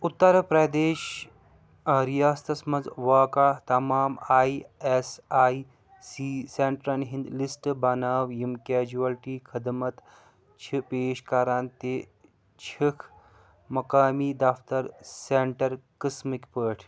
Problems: background sounds at intervals